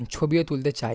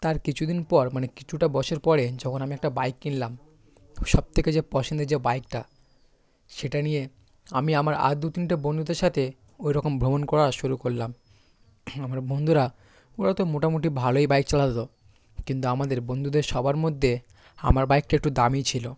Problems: constant background noise, background conversations at intervals